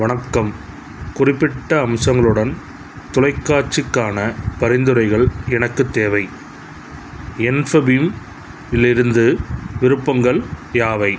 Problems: none marked